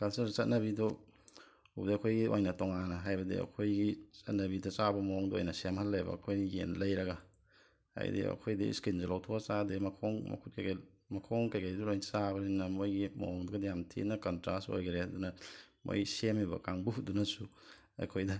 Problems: background sounds at intervals, low volume